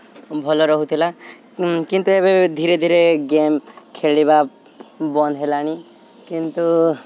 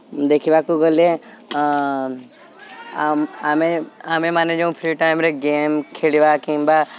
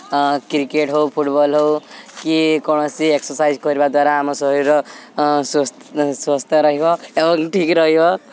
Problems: none marked